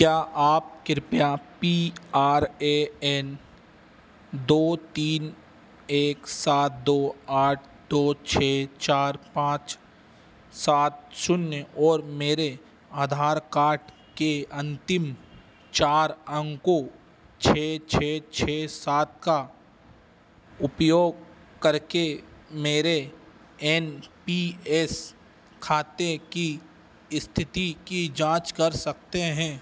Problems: none marked